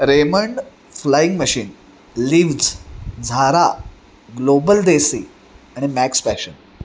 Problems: constant background noise